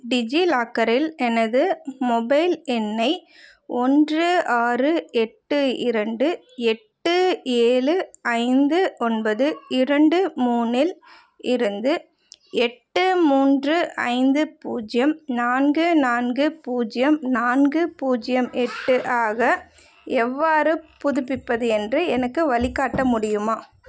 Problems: background conversations at intervals